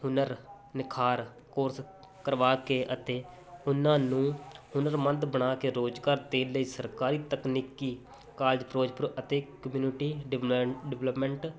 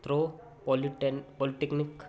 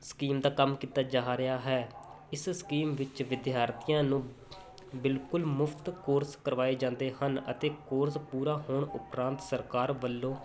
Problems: constant background noise